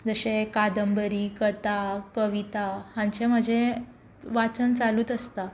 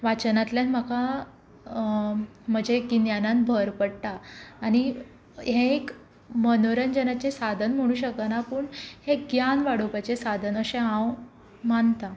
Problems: constant background noise